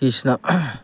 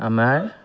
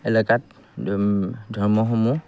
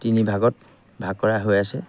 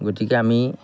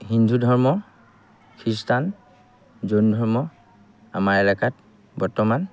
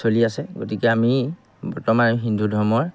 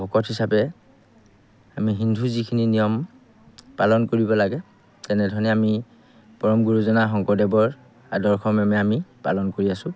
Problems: background sounds at intervals